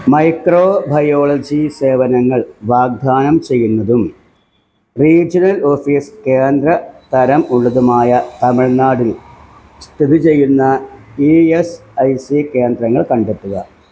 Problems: none marked